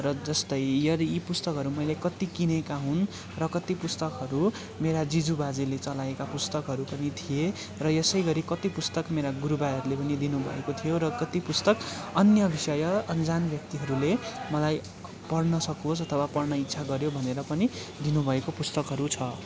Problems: constant background noise, continuous background conversations